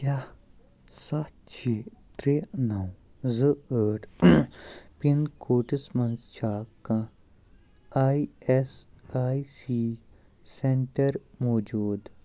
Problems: background sounds at intervals, low volume